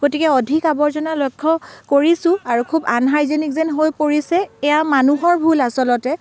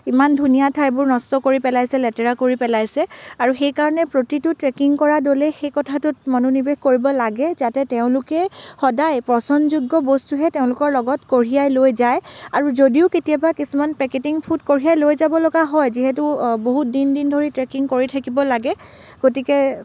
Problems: none marked